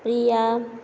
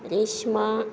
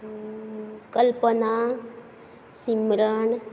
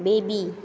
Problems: none marked